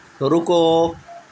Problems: constant background noise